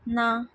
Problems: none marked